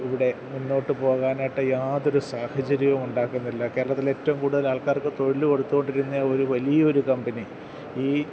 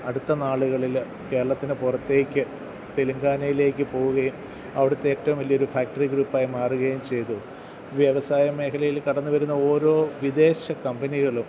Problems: none marked